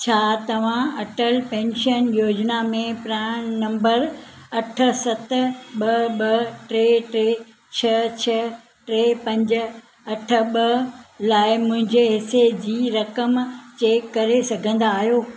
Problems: none marked